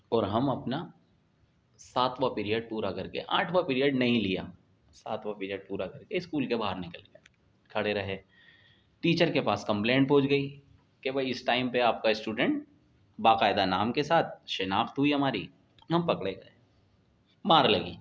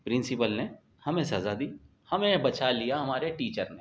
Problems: none marked